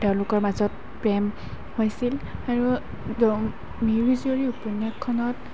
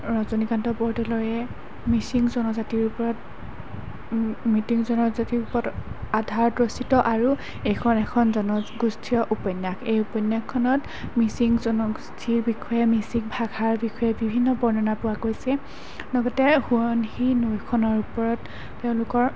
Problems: constant background noise